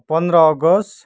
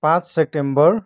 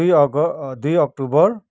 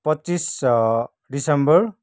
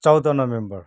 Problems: none marked